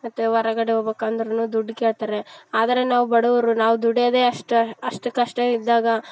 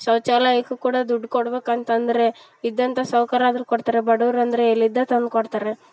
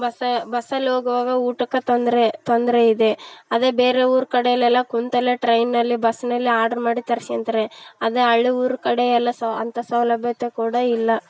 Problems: background sounds at intervals